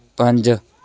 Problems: continuous background conversations